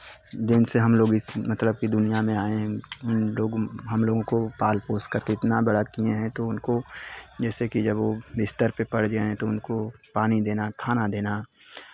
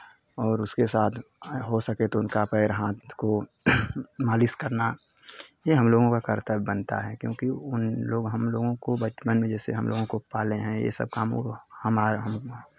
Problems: constant background noise, background conversations at intervals